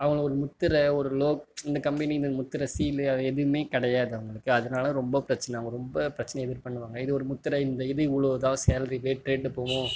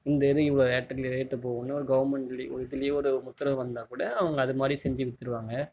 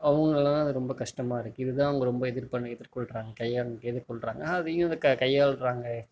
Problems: none marked